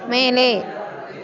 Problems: continuous background conversations